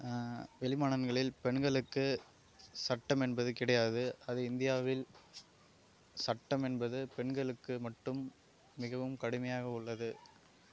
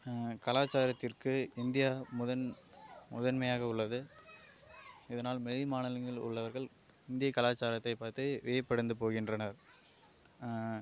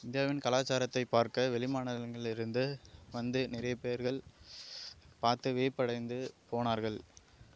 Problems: low volume